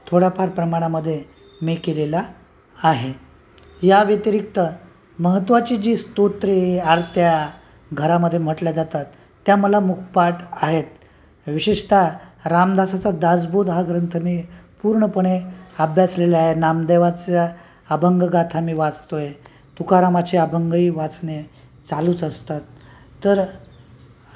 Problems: constant background noise, continuous background conversations